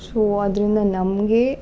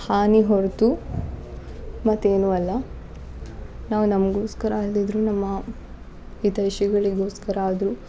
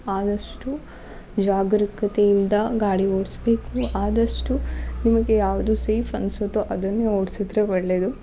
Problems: background sounds at intervals